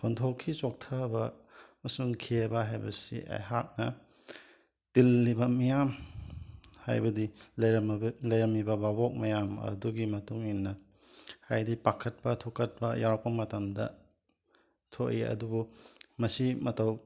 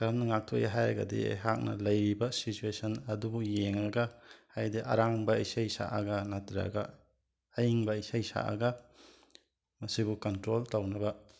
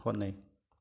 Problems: background sounds at intervals